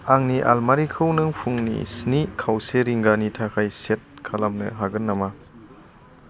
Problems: constant background noise